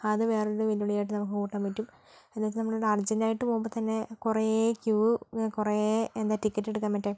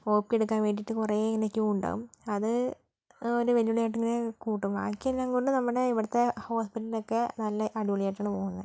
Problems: low volume